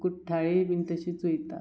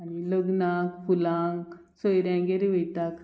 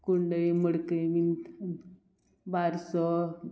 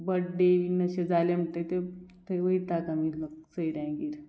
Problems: background sounds at intervals